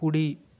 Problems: constant background noise